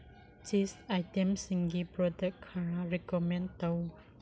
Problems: low volume